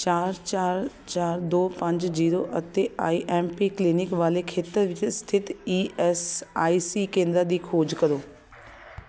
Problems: constant background noise